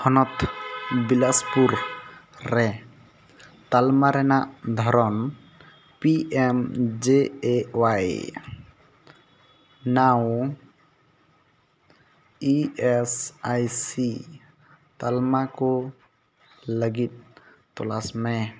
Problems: none marked